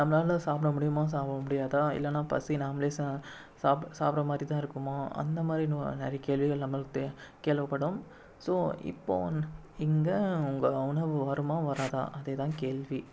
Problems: background sounds at intervals